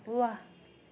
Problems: background sounds at intervals